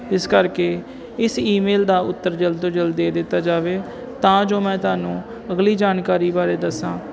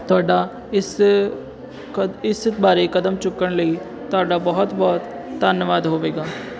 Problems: constant background noise